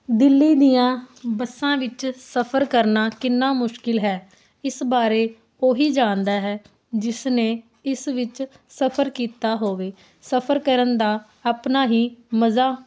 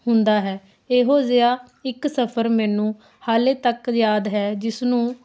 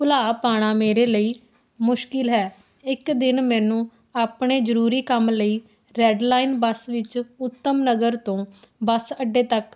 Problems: constant background noise